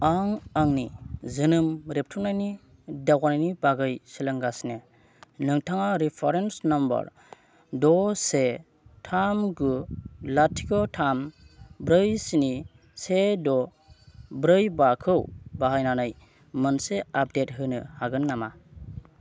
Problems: none marked